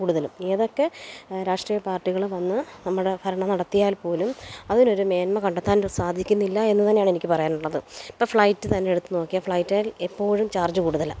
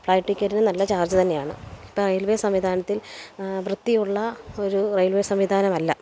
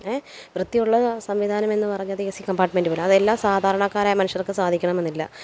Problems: background sounds at intervals